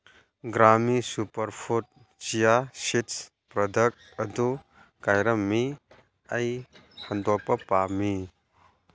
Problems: none marked